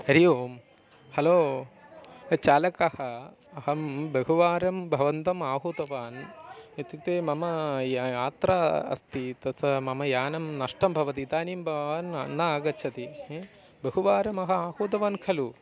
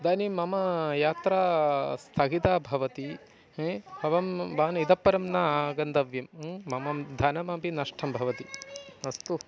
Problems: continuous background conversations